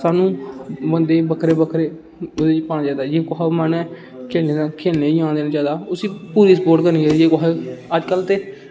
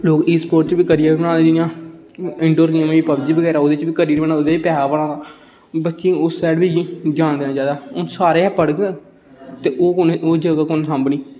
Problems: constant background noise